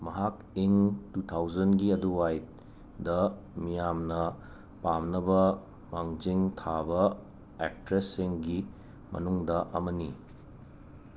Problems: none marked